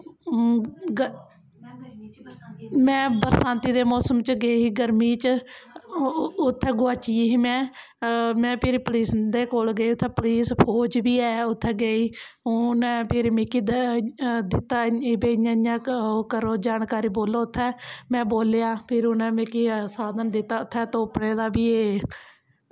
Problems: none marked